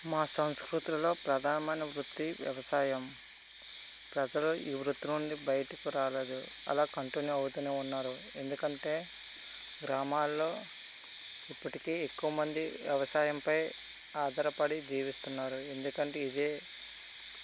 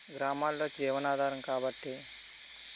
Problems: constant background noise